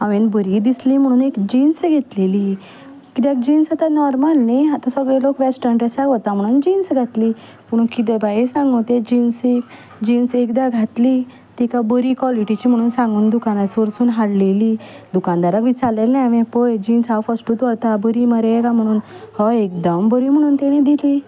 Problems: constant background noise, background conversations at intervals